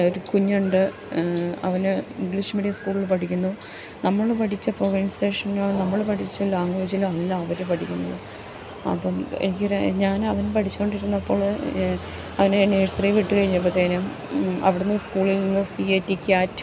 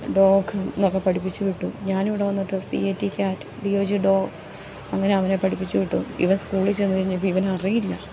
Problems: none marked